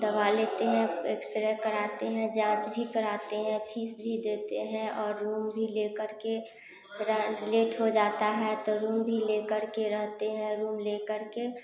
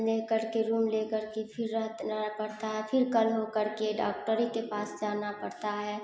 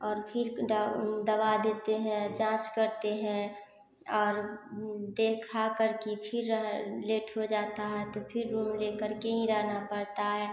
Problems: none marked